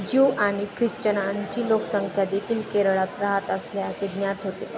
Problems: constant background noise, background conversations at intervals